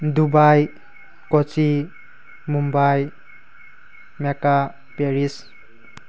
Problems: background sounds at intervals